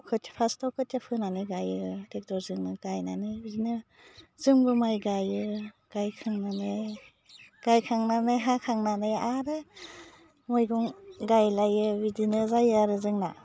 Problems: low volume